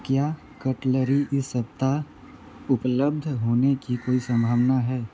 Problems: constant background noise